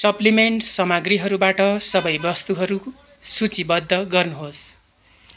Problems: constant background noise